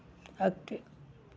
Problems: constant background noise, low volume